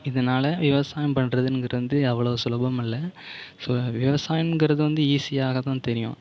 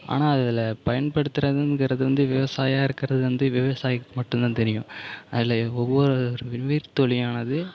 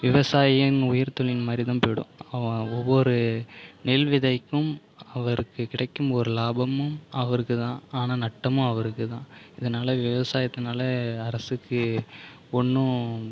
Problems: none marked